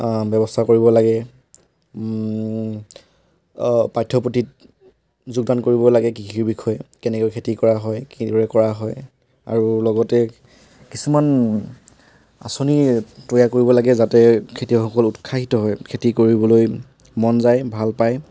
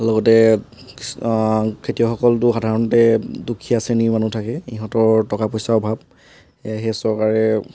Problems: background sounds at intervals